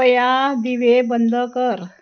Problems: background sounds at intervals